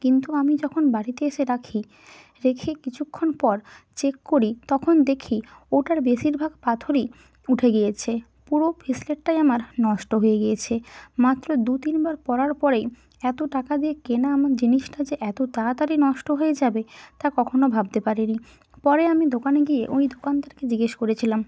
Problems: none marked